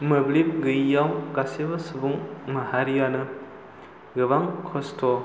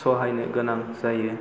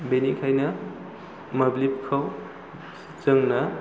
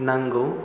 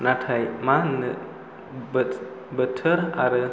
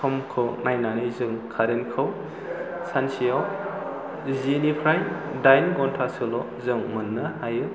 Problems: low volume